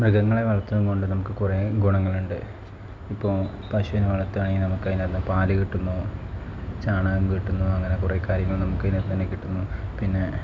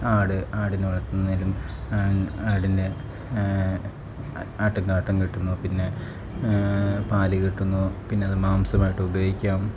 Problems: constant background noise, low volume